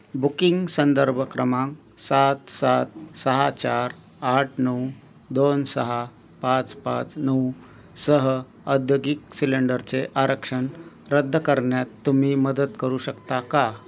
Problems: constant background noise